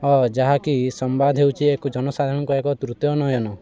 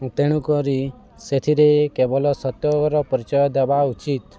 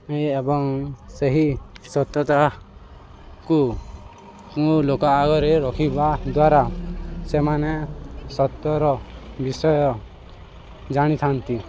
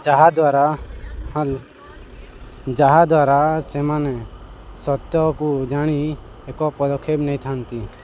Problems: constant background noise